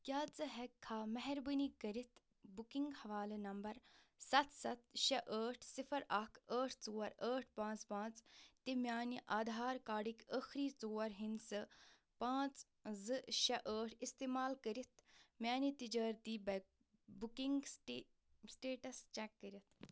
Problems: none marked